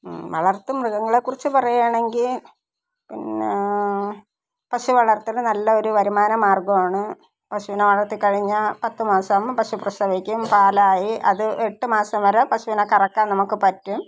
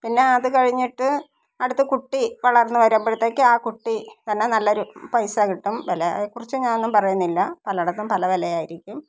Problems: none marked